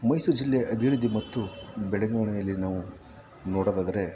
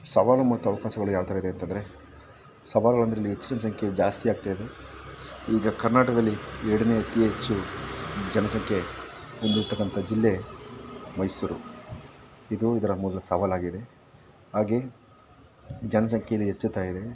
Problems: background sounds at intervals